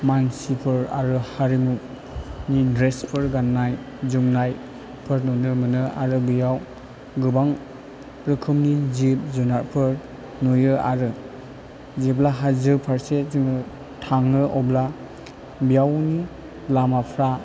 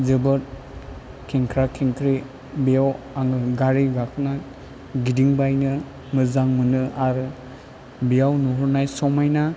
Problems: low volume